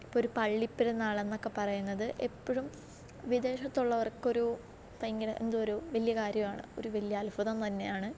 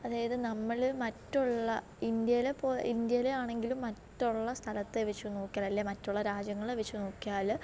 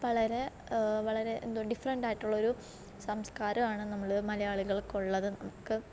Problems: low volume